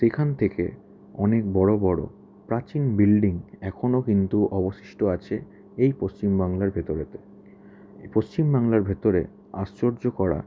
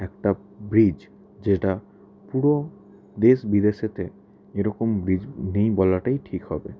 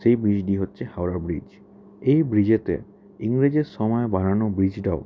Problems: background conversations at intervals